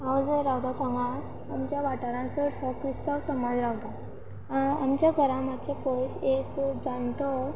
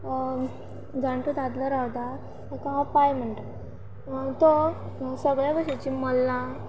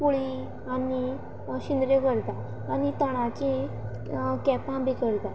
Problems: constant background noise